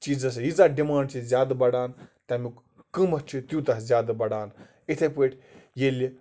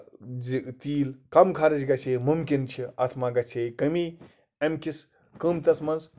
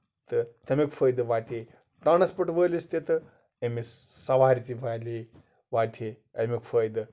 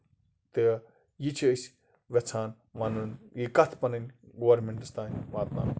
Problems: constant background noise